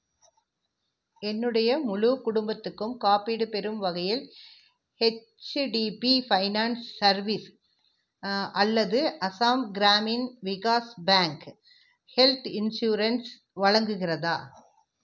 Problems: none marked